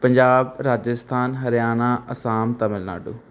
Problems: none marked